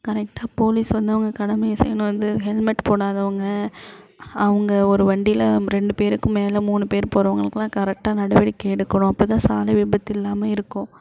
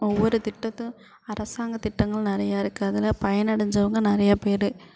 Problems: constant background noise